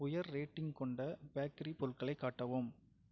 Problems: low volume